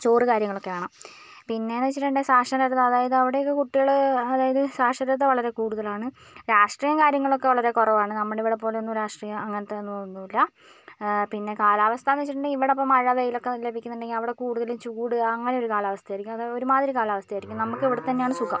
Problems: none marked